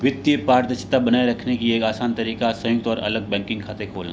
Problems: constant background noise